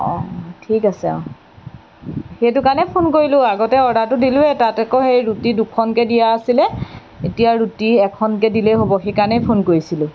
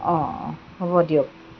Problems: background sounds at intervals